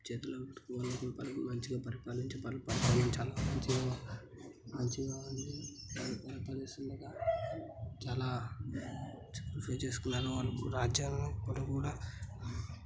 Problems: none marked